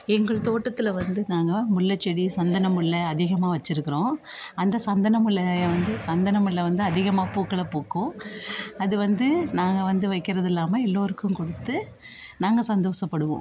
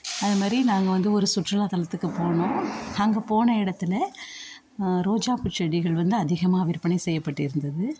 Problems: continuous background conversations